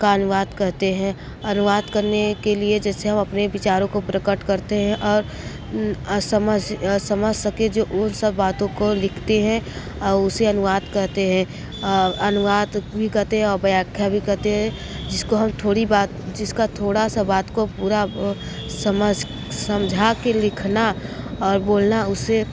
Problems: background sounds at intervals